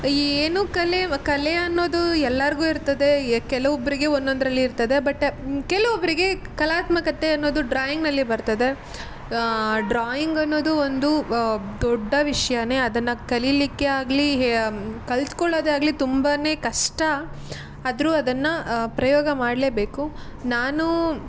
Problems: constant background noise